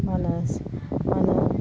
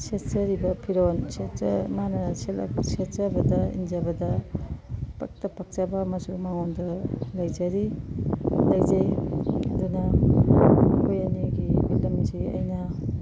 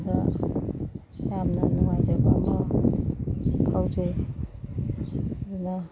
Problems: constant background noise